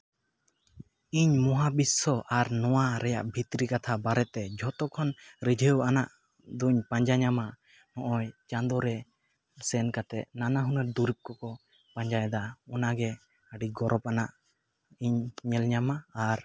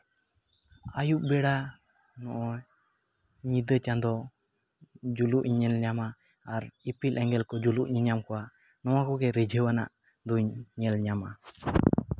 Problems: constant background noise, echo